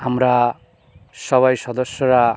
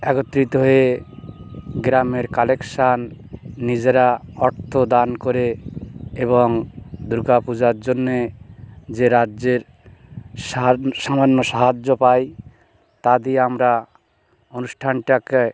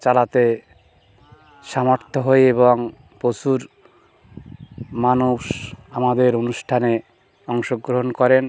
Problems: constant background noise